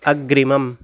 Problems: background sounds at intervals